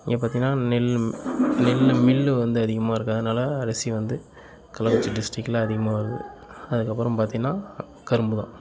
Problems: continuous background conversations